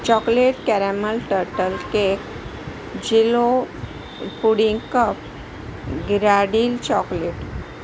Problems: constant background noise